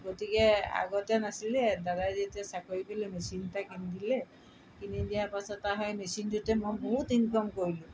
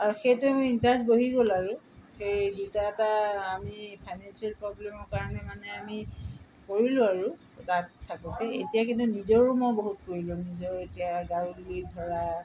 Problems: none marked